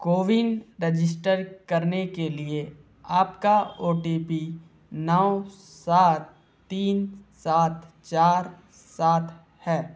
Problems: constant background noise